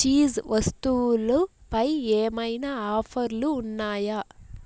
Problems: none marked